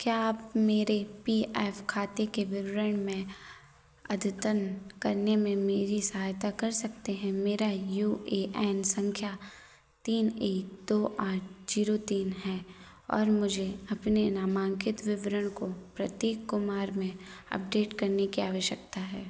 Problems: constant background noise